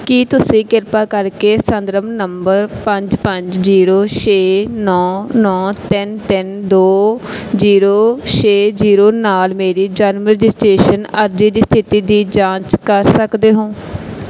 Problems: background sounds at intervals